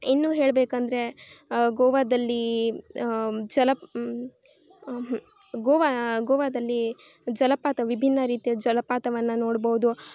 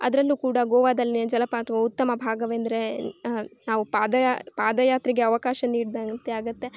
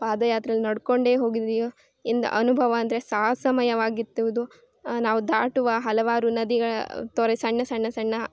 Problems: none marked